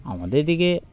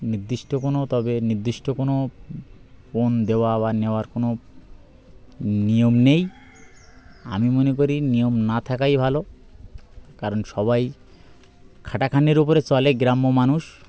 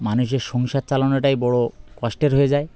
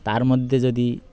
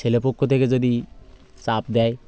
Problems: constant background noise, background conversations at intervals